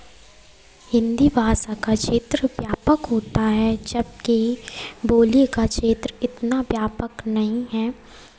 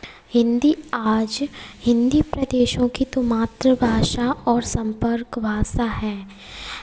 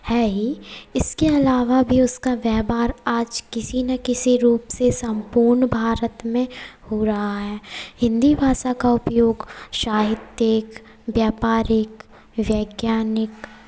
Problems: none marked